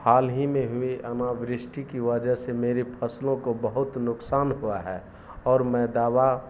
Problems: constant background noise